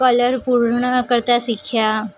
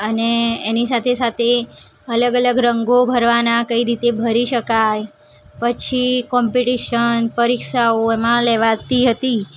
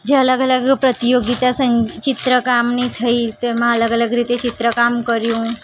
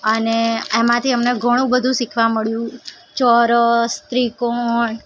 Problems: background sounds at intervals